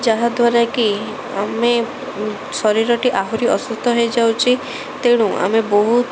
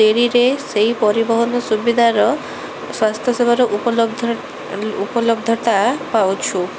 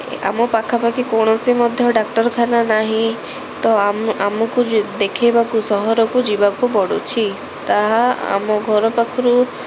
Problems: none marked